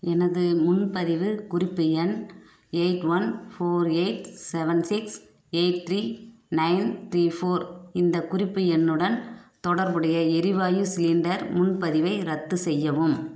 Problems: background sounds at intervals